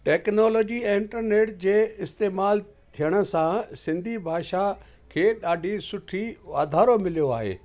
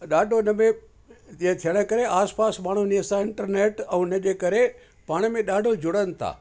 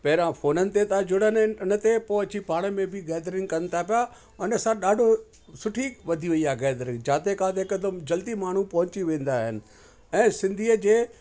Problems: constant background noise